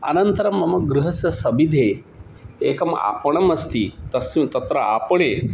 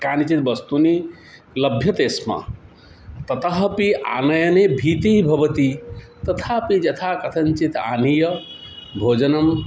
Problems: background sounds at intervals